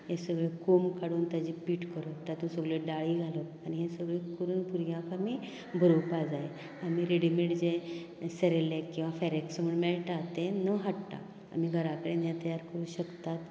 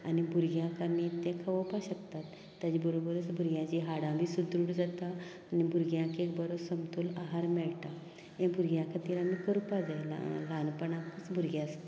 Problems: low volume